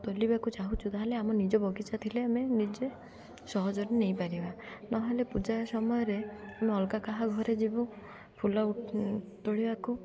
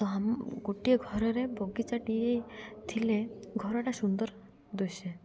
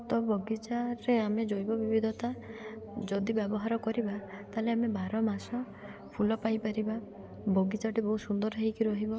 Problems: none marked